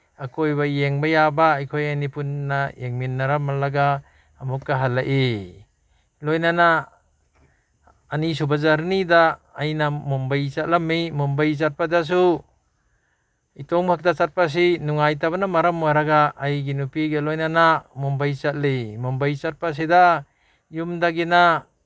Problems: none marked